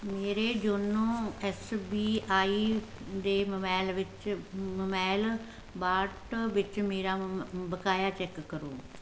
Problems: constant background noise